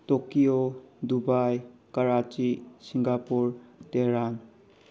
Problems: none marked